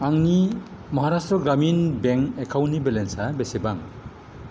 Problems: constant background noise